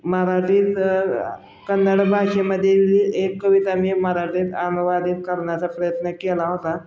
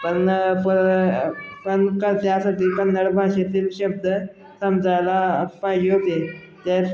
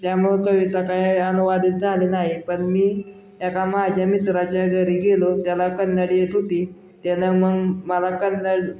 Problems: constant background noise, continuous background conversations